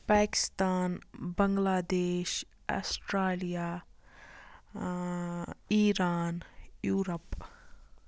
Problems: none marked